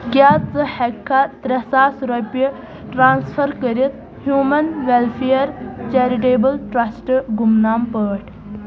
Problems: constant background noise, background conversations at intervals